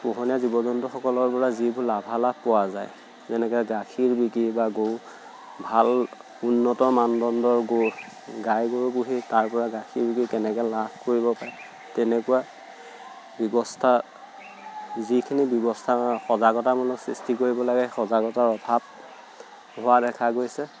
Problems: none marked